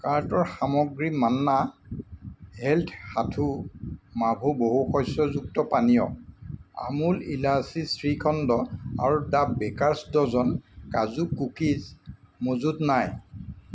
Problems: constant background noise